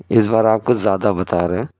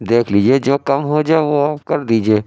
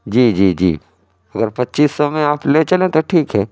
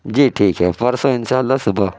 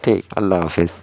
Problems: none marked